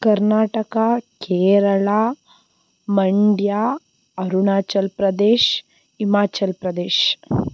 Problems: background sounds at intervals